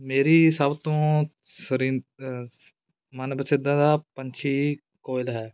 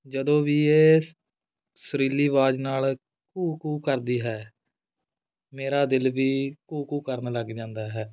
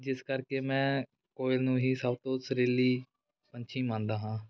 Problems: background sounds at intervals